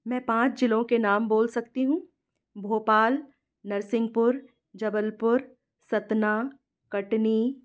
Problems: none marked